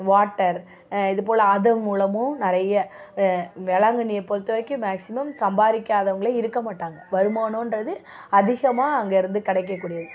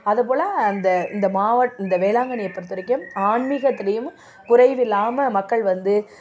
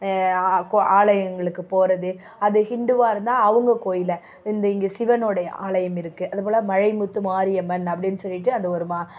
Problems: none marked